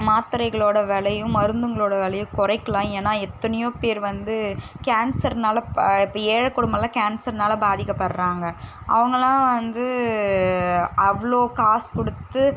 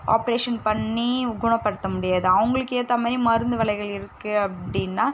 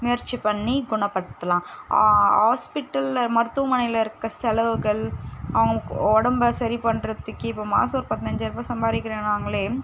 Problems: constant background noise